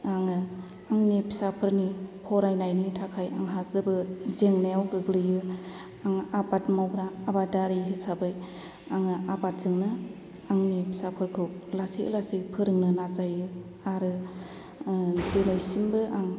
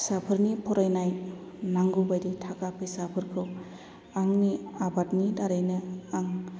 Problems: low volume